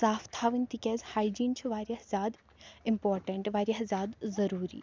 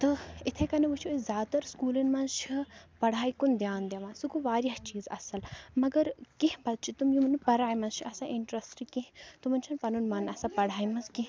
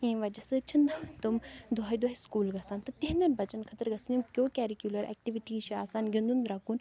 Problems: none marked